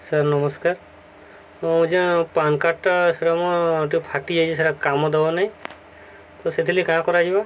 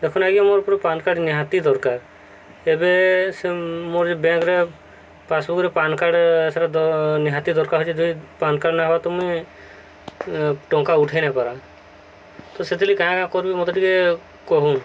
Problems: constant background noise